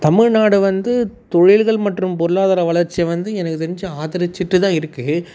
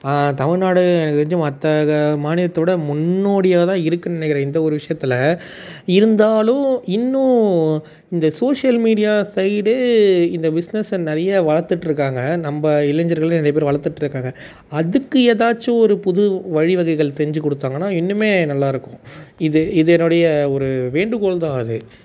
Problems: none marked